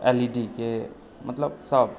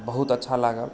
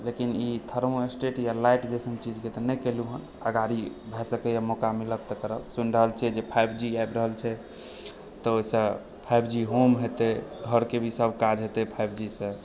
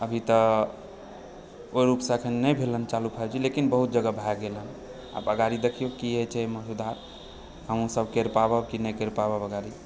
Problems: background sounds at intervals